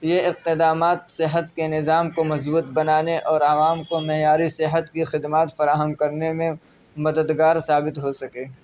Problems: none marked